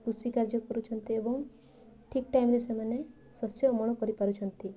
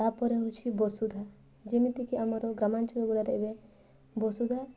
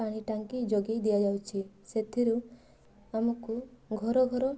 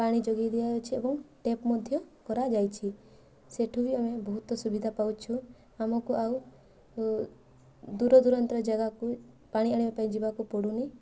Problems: constant background noise